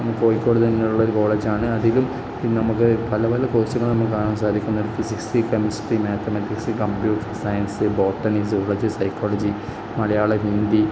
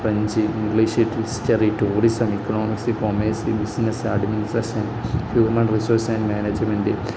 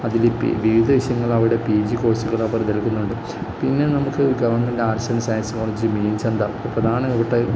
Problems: low volume